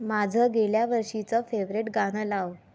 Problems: constant background noise